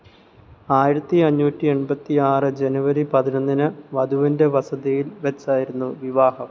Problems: none marked